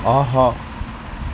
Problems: constant background noise